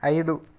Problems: none marked